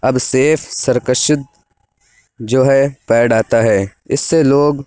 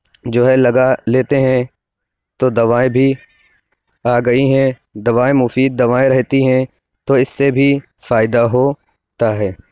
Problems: none marked